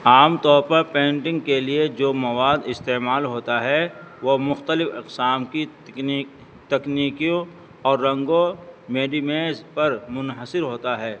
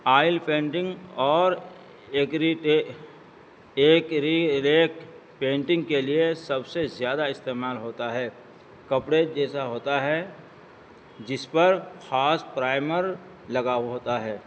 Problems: constant background noise